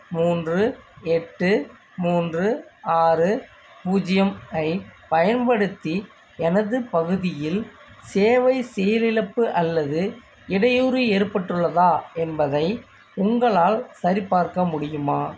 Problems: constant background noise